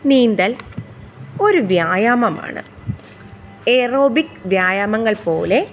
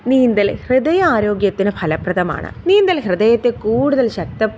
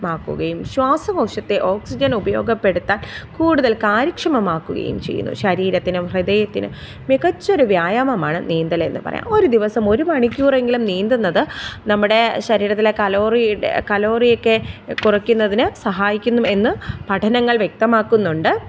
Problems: background sounds at intervals